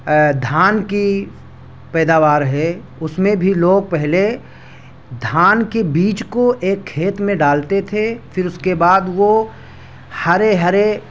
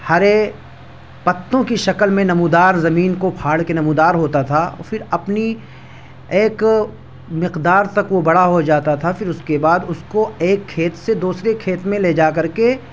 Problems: none marked